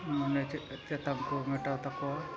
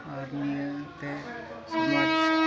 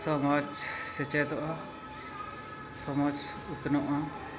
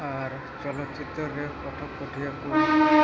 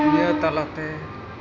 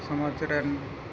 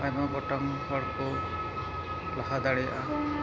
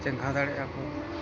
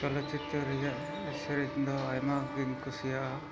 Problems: constant background noise, continuous background conversations, low volume